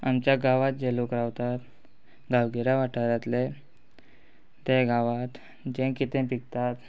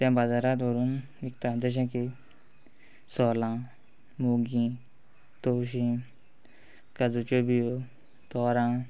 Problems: background sounds at intervals